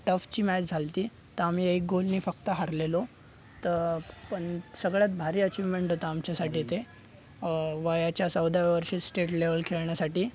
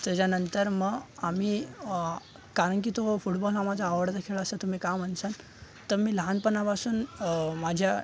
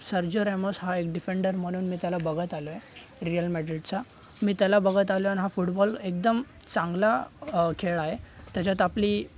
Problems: constant background noise, background conversations at intervals